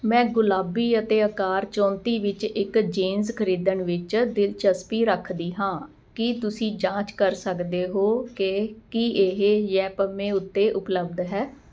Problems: constant background noise